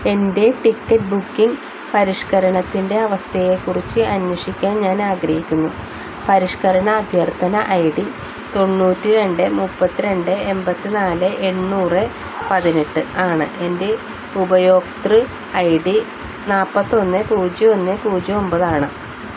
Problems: constant background noise